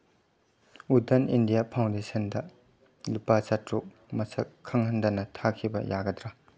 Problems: none marked